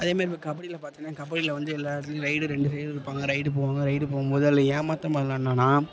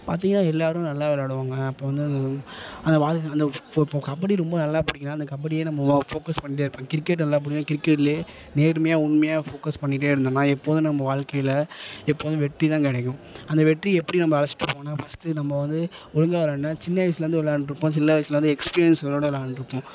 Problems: constant background noise, low volume